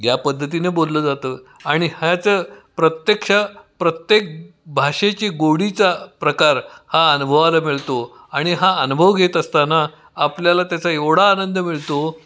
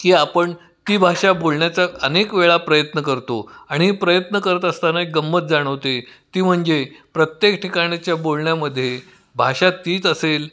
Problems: constant background noise, echo